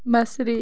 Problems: constant background noise